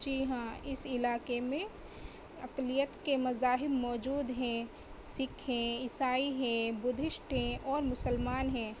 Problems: constant background noise